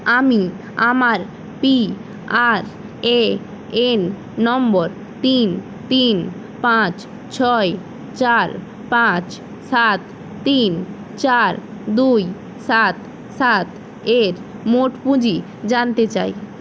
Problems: constant background noise